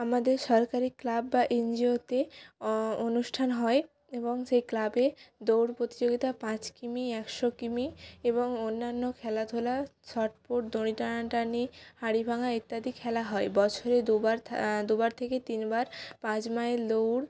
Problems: constant background noise